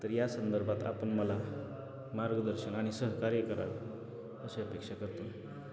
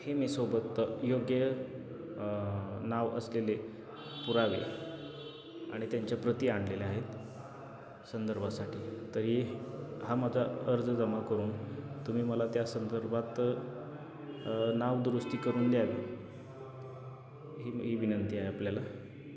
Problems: none marked